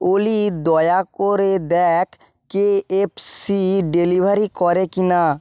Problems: none marked